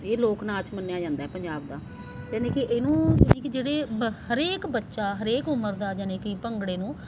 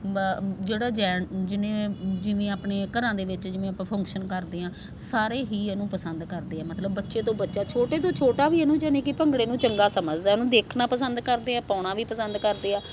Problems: constant background noise